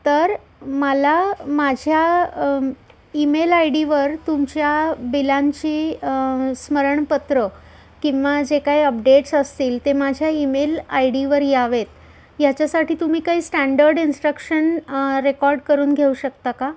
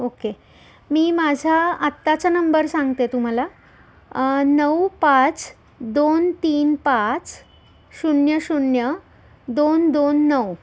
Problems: constant background noise, background conversations at intervals